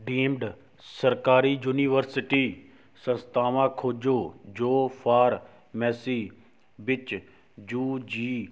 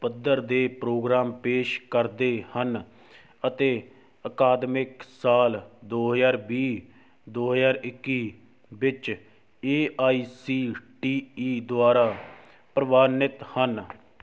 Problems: background sounds at intervals